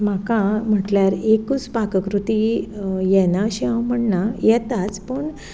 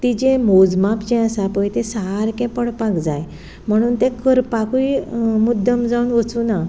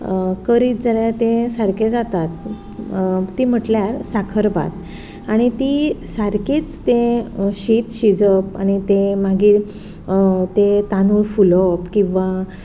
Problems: background sounds at intervals